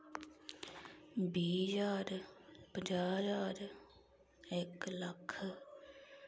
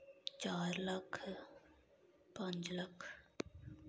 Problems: none marked